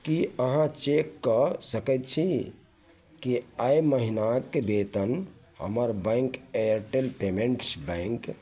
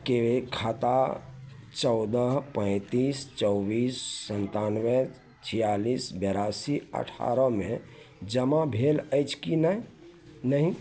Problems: none marked